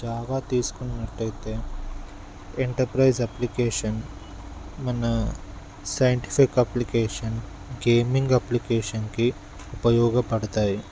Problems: none marked